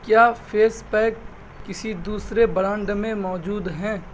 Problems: none marked